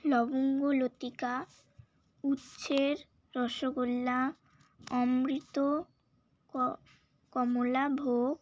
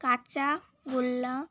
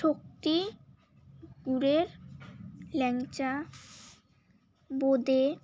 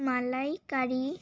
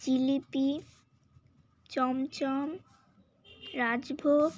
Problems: constant background noise, background conversations at intervals